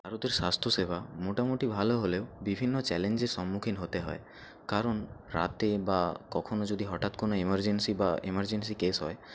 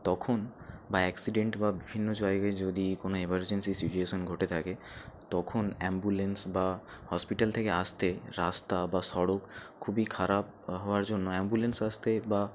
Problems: background sounds at intervals